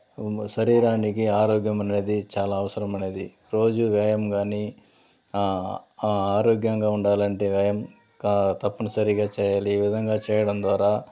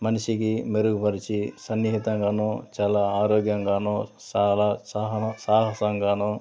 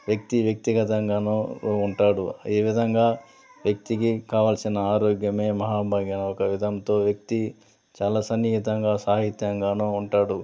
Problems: constant background noise, background conversations at intervals